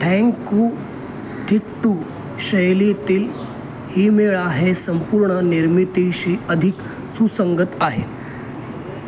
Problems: none marked